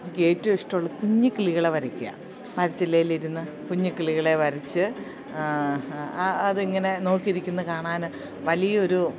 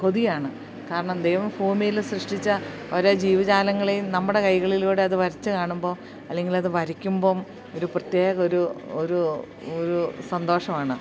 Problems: none marked